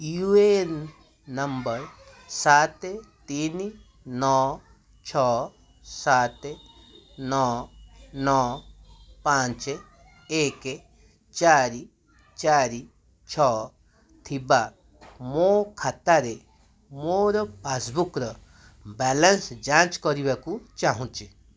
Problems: constant background noise, continuous background conversations